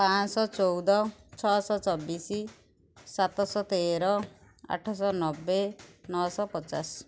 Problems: background sounds at intervals